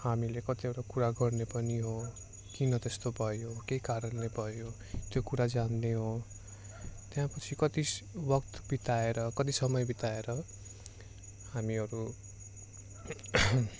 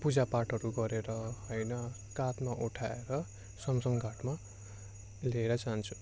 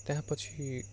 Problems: constant background noise